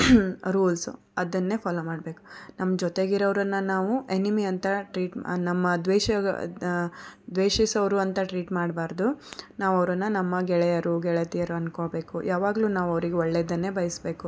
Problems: background conversations at intervals